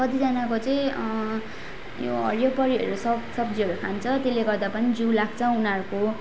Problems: none marked